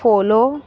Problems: none marked